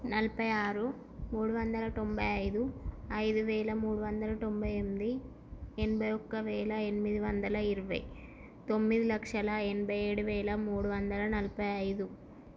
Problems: constant background noise, low volume